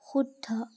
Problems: constant background noise